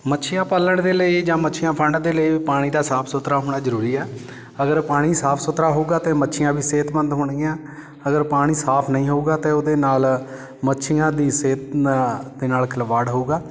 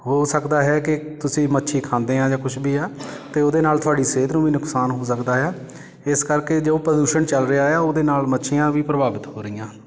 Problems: constant background noise